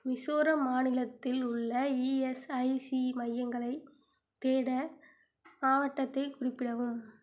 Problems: low volume